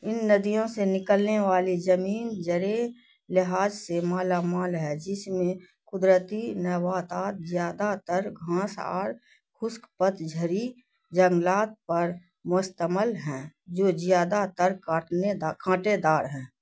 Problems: none marked